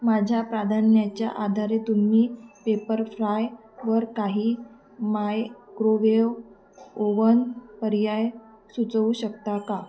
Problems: constant background noise, background conversations at intervals